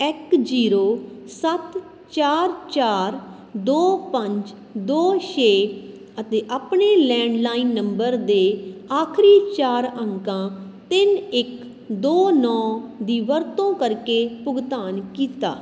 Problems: constant background noise